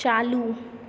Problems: none marked